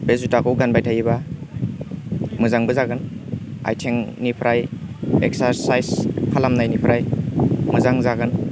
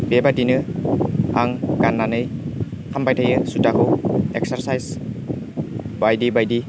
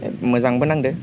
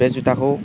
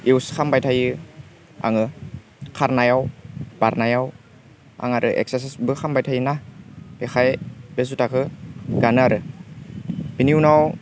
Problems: constant background noise